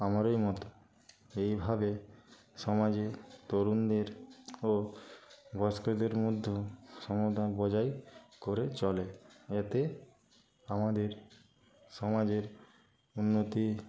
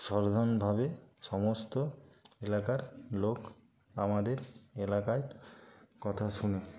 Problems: constant background noise, continuous background conversations